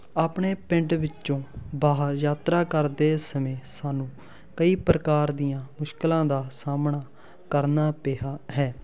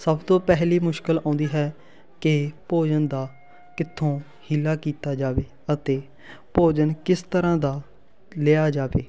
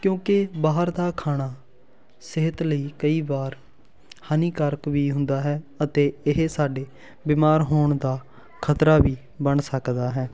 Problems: constant background noise, continuous background conversations